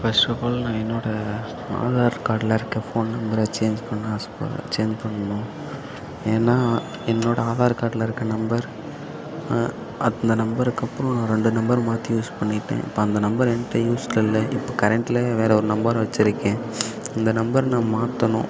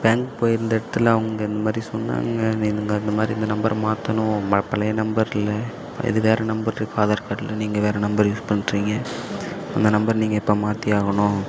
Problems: background sounds at intervals